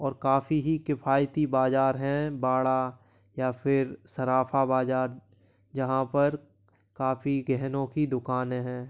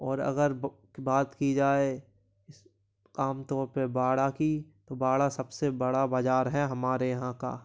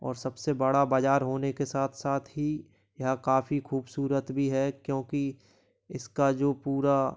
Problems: background sounds at intervals